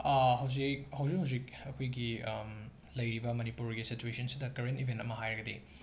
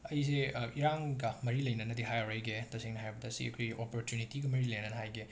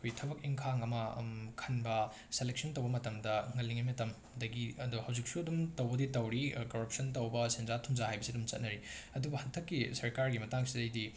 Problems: background sounds at intervals